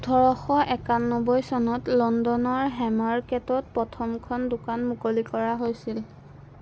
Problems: constant background noise